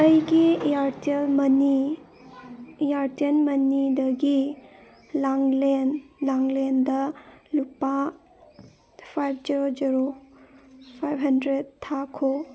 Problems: background sounds at intervals